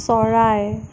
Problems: constant background noise